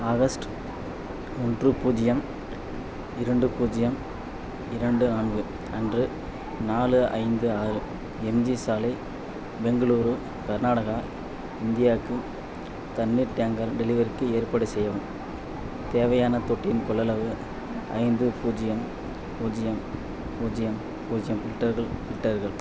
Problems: constant background noise